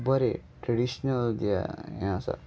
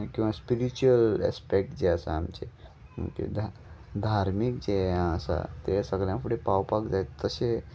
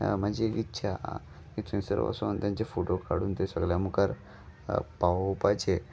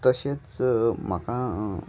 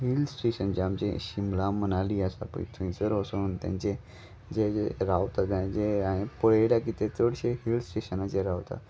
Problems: none marked